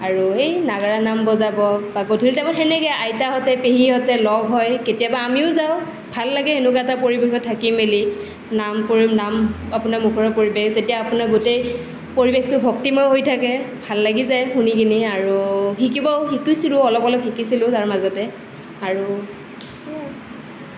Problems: none marked